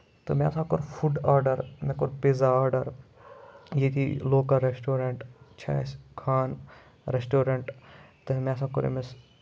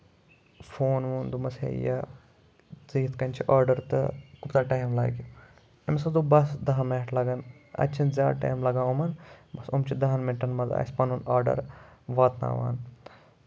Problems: background sounds at intervals